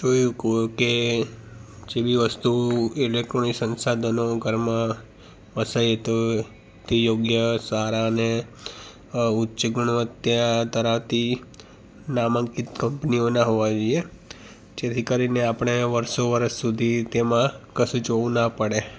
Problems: background sounds at intervals